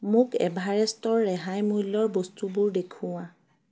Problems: none marked